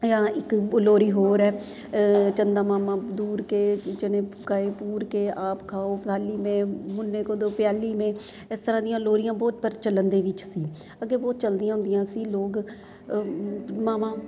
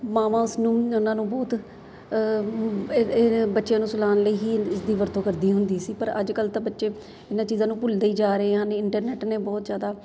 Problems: none marked